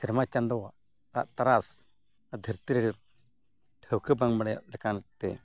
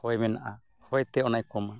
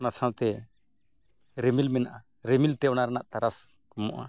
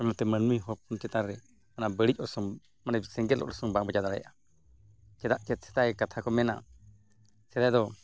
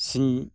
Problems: background sounds at intervals